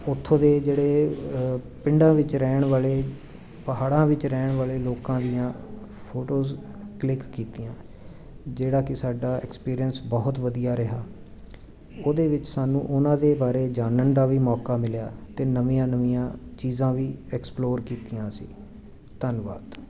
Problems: continuous background conversations